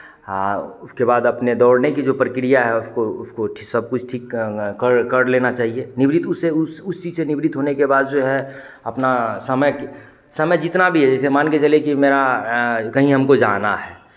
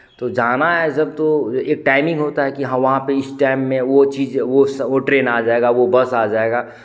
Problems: none marked